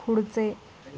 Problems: none marked